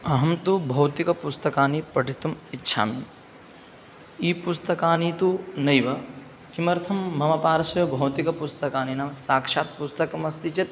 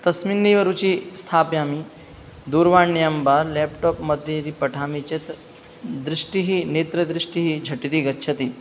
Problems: background sounds at intervals